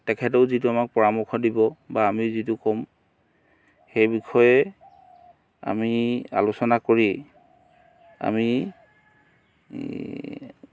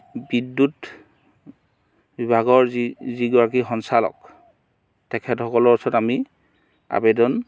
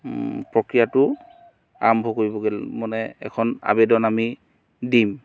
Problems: background sounds at intervals